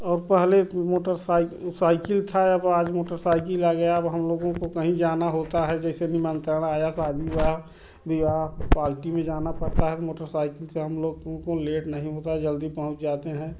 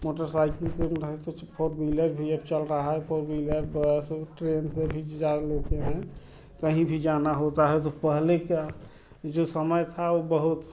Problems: constant background noise